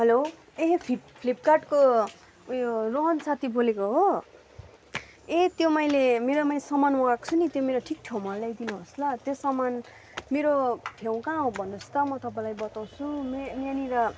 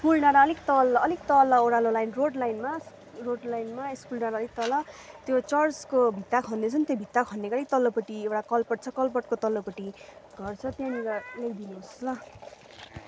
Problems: constant background noise, continuous background conversations